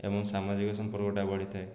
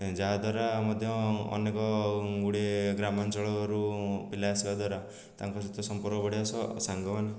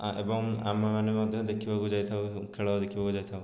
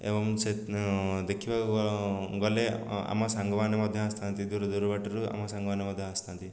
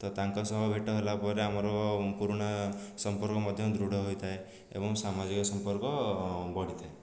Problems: low volume